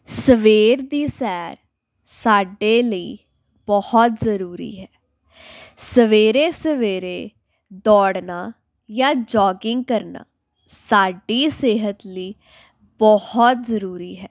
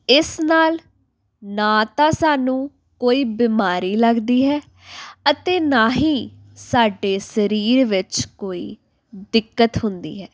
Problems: background sounds at intervals